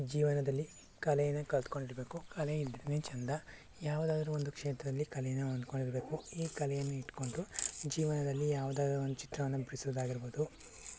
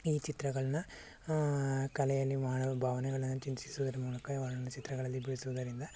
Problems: low volume